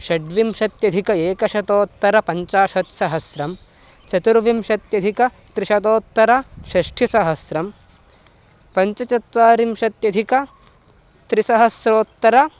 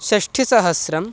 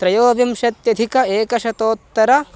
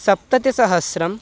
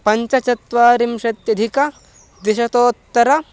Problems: constant background noise